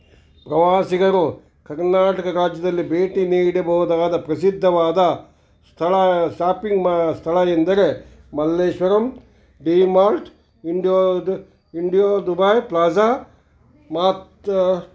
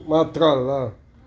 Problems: none marked